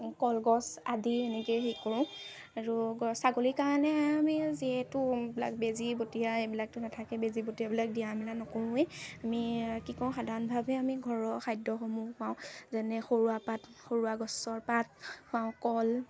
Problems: constant background noise, background conversations at intervals